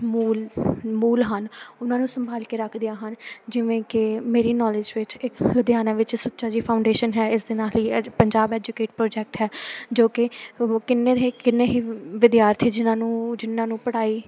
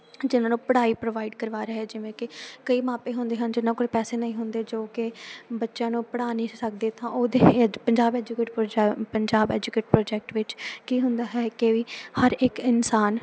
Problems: none marked